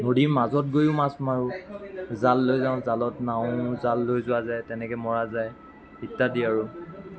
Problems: background sounds at intervals, continuous background conversations